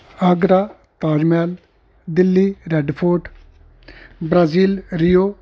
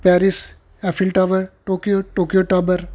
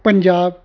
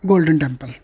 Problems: constant background noise